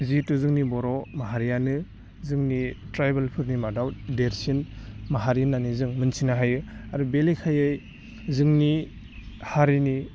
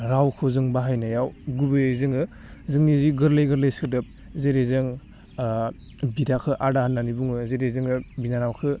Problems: none marked